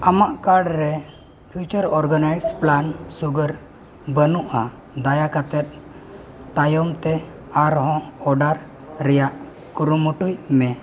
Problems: none marked